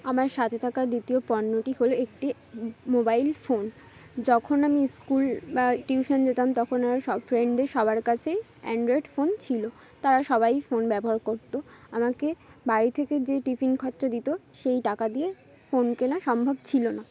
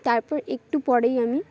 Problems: constant background noise, background conversations at intervals